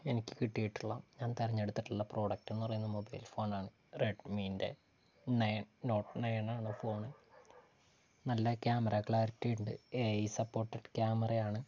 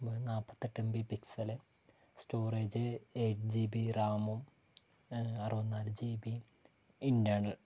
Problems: low volume